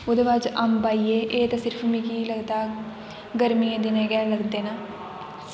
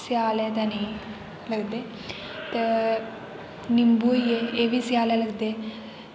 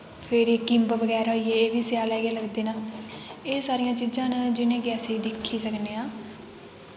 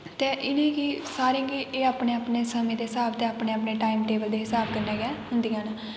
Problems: constant background noise, background conversations at intervals